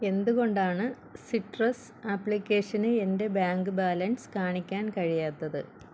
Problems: constant background noise